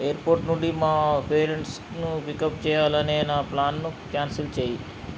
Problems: constant background noise